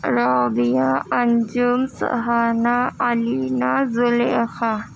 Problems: constant background noise, low volume